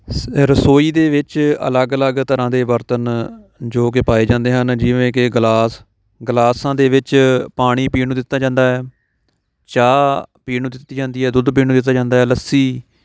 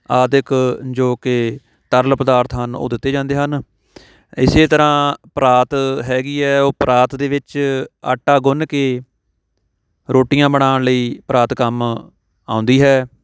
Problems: background sounds at intervals